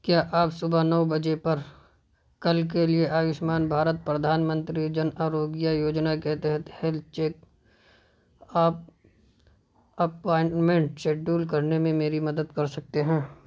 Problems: none marked